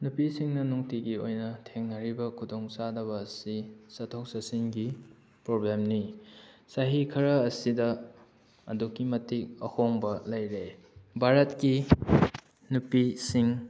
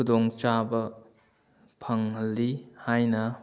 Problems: none marked